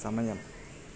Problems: constant background noise